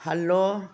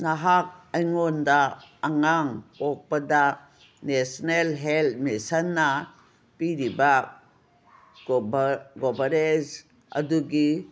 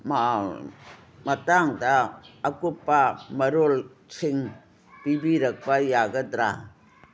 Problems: none marked